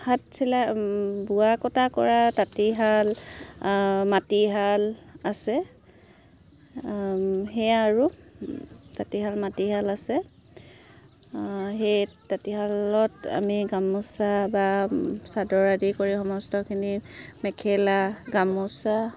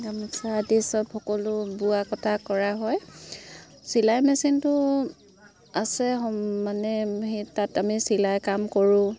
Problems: constant background noise